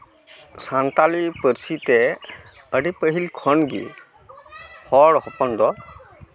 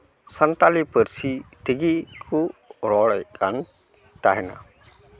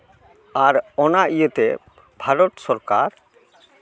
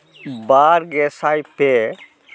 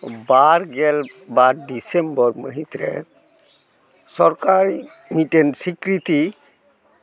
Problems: constant background noise, background conversations at intervals